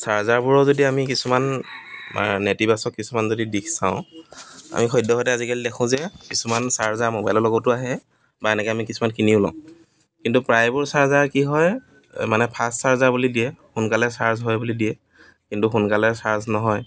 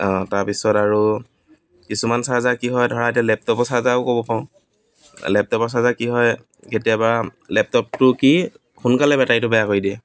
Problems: background sounds at intervals, background conversations at intervals